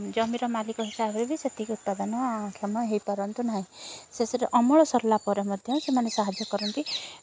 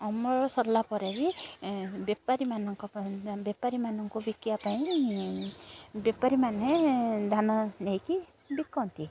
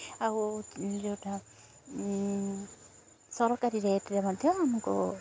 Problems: constant background noise, continuous background conversations